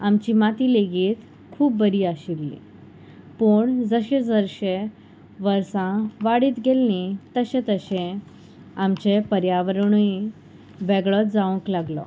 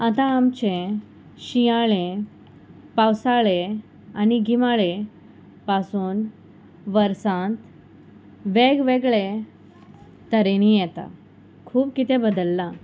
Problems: none marked